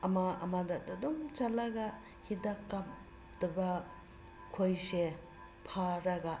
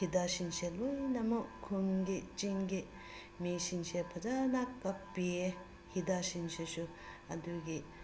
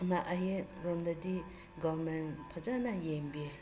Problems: constant background noise